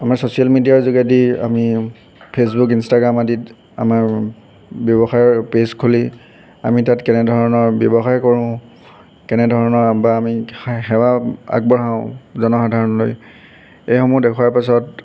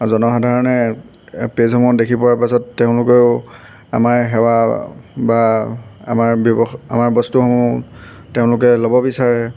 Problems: constant background noise